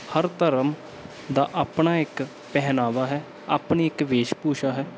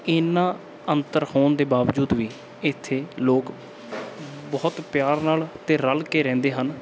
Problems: background sounds at intervals